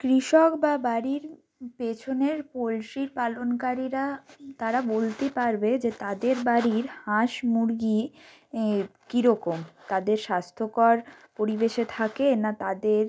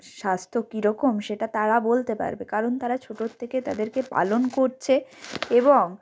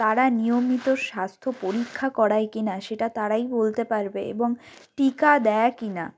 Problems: background sounds at intervals